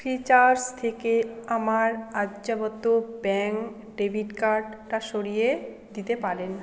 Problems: continuous background conversations